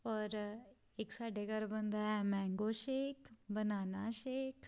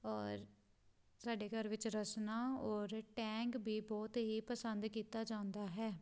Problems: none marked